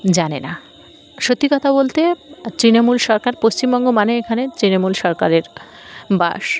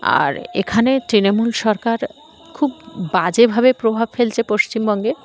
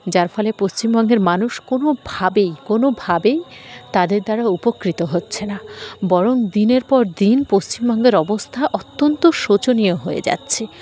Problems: constant background noise, background conversations at intervals